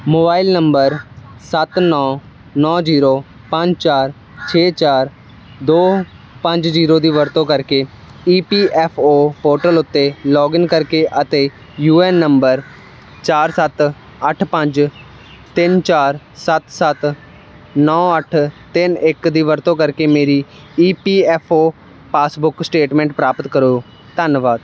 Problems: constant background noise